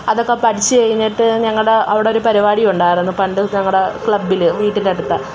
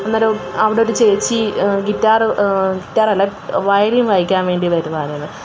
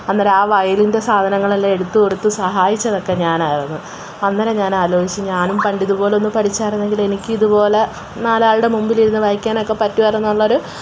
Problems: background sounds at intervals